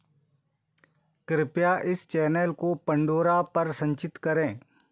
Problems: background sounds at intervals